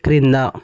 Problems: none marked